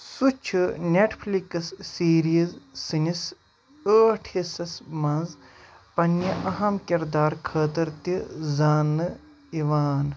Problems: constant background noise